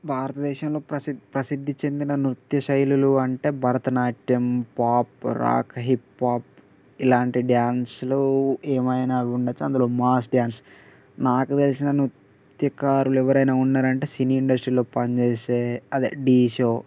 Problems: constant background noise